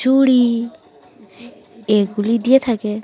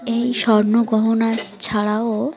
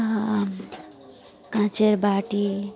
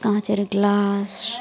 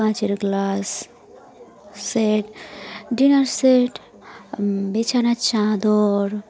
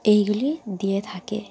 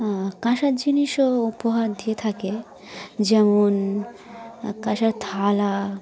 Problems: constant background noise, continuous background conversations